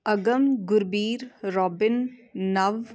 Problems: continuous background conversations